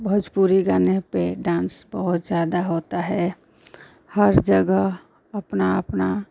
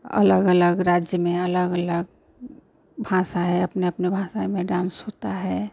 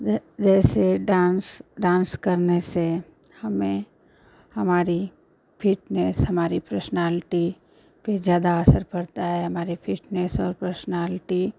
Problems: constant background noise